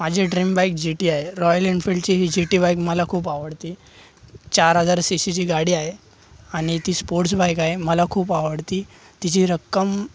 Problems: none marked